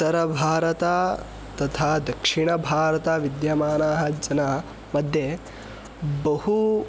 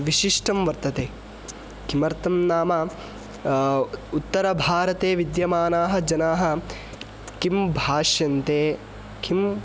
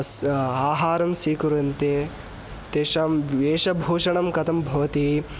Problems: constant background noise